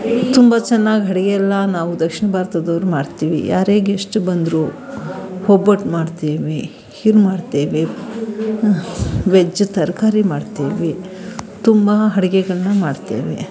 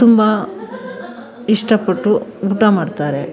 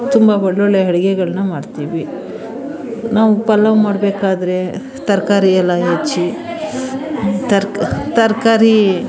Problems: background sounds at intervals, background conversations at intervals